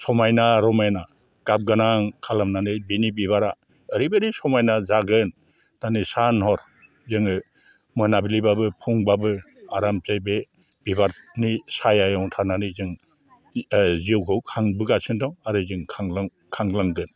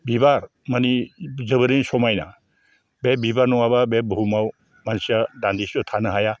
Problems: low volume